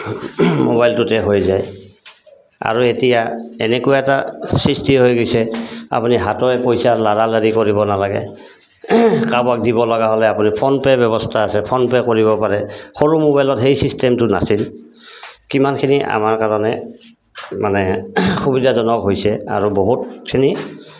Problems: constant background noise